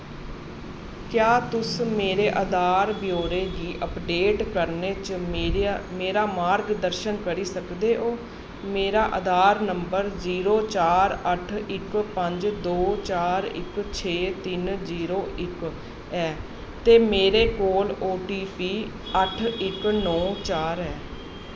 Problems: constant background noise